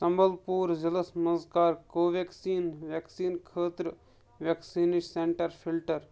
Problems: none marked